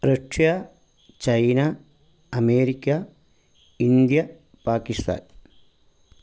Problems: background sounds at intervals